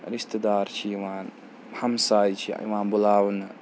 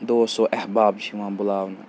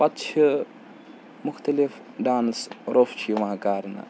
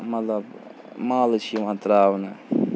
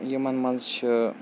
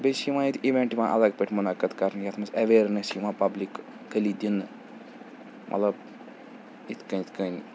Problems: constant background noise